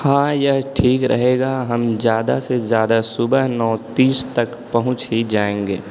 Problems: none marked